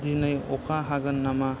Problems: low volume